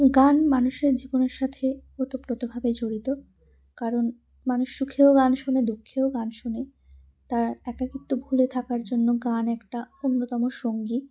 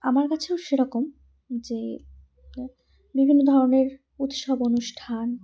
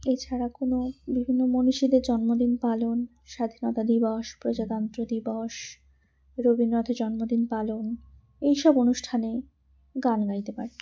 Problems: none marked